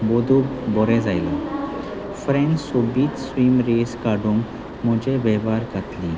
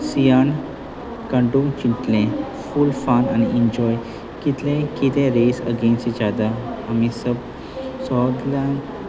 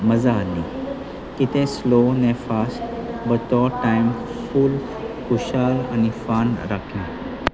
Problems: constant background noise, continuous background conversations